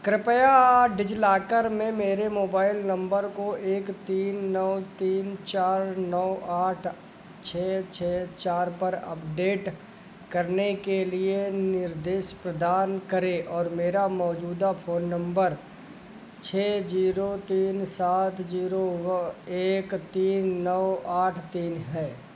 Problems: none marked